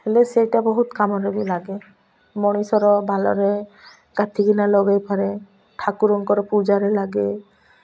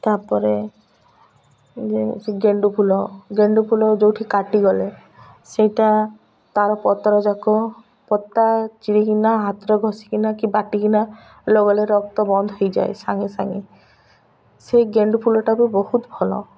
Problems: none marked